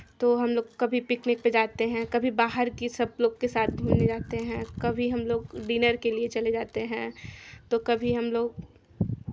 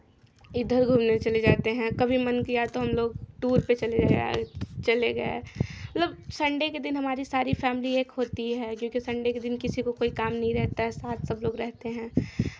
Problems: none marked